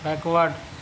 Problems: none marked